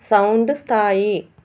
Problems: constant background noise